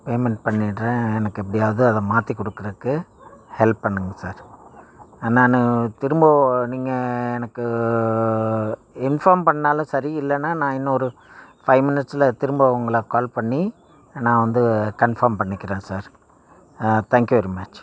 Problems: background sounds at intervals